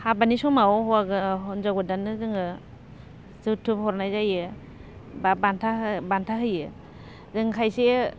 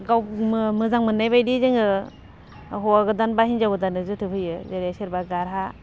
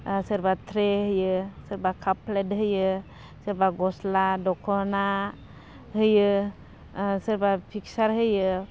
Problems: none marked